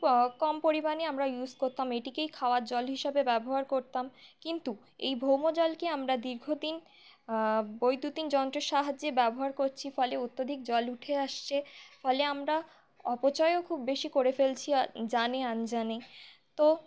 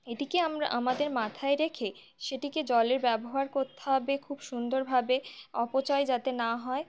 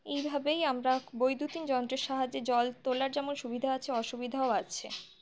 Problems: none marked